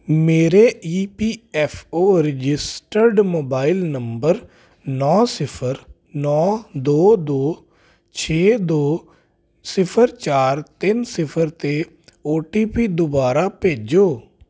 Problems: constant background noise